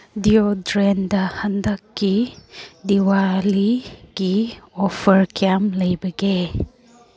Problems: none marked